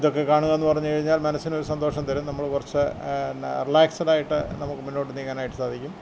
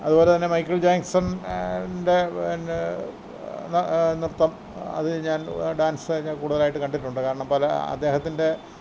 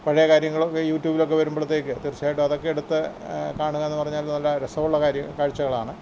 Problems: background sounds at intervals